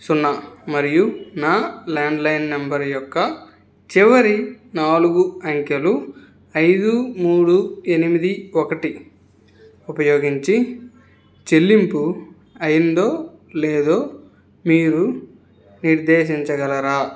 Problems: none marked